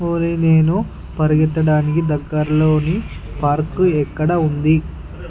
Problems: background sounds at intervals